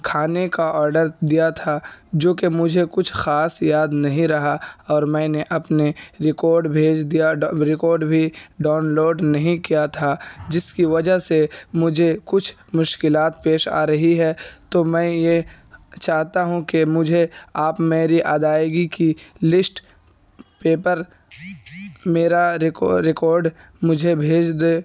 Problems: background sounds at intervals